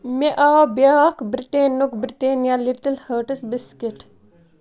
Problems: background sounds at intervals